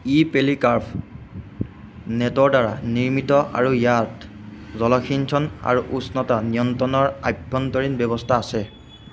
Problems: constant background noise